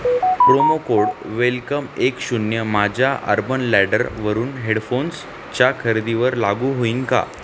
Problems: constant background noise